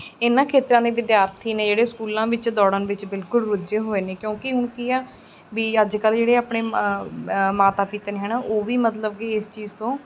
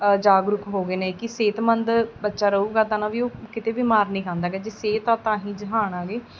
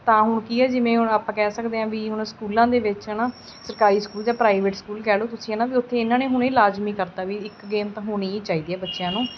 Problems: constant background noise